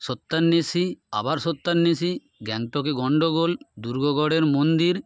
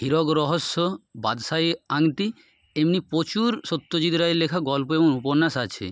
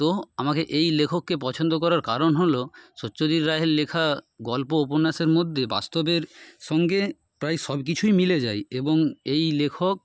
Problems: none marked